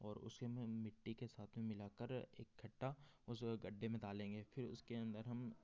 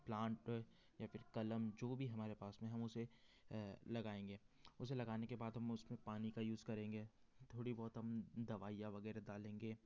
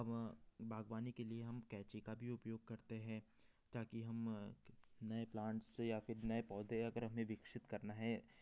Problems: none marked